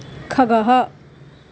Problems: constant background noise